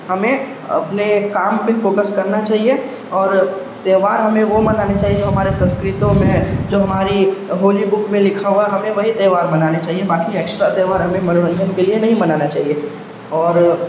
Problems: constant background noise